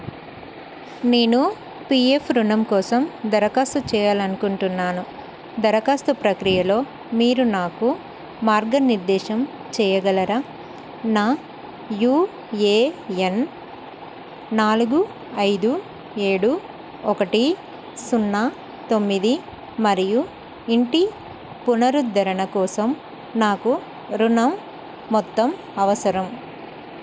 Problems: constant background noise